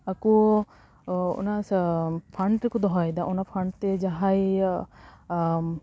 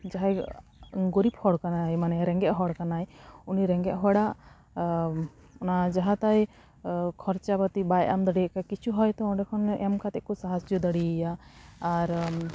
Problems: constant background noise